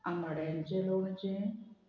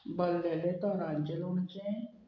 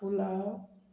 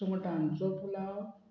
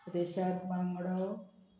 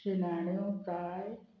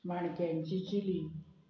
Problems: none marked